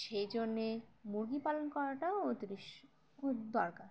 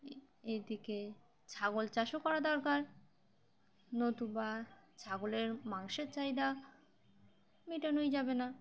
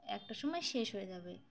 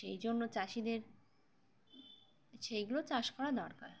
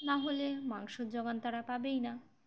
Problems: background sounds at intervals, background conversations at intervals